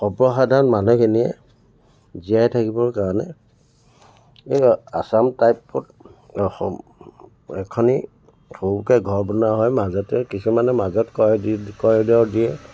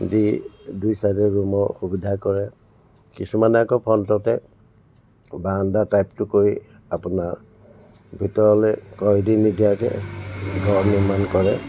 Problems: constant background noise, background conversations at intervals